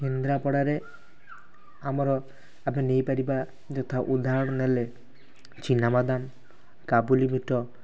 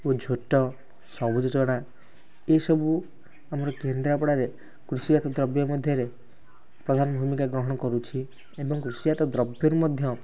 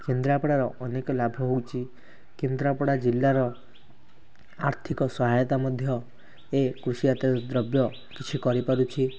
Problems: constant background noise